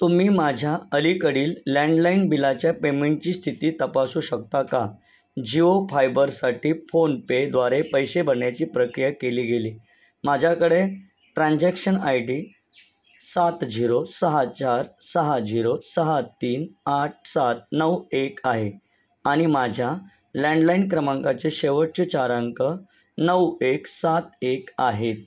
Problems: none marked